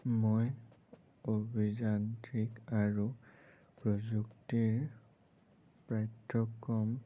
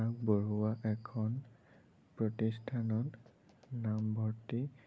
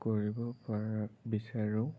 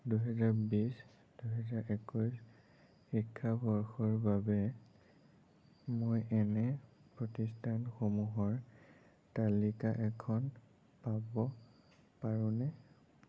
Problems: low volume